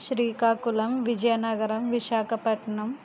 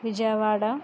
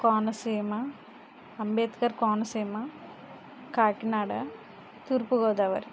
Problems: constant background noise